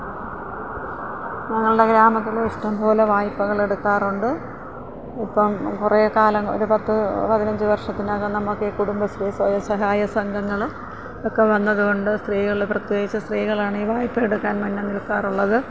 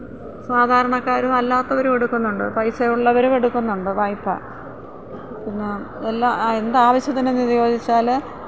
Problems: constant background noise